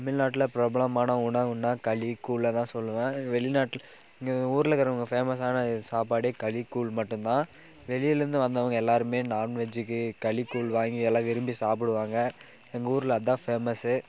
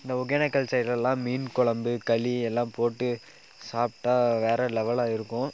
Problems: background conversations at intervals